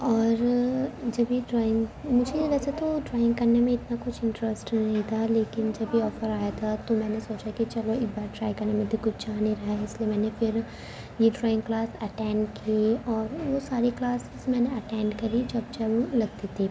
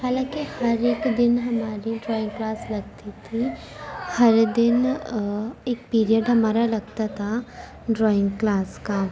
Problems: constant background noise